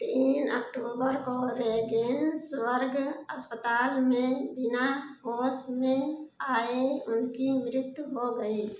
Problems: background sounds at intervals, echo